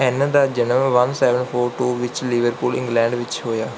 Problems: background sounds at intervals